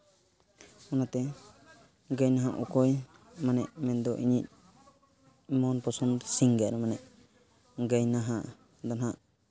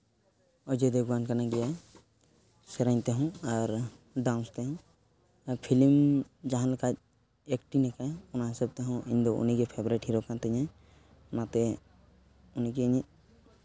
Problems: background sounds at intervals